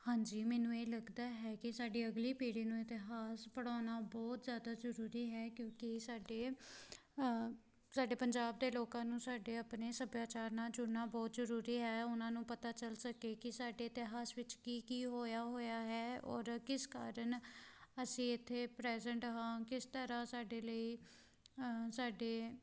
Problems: constant background noise